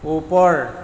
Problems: background sounds at intervals